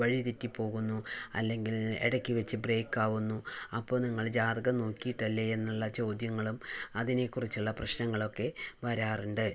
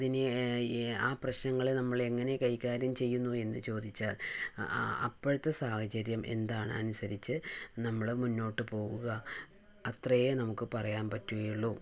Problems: low volume